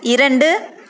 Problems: constant background noise